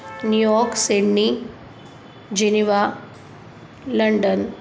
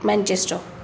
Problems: none marked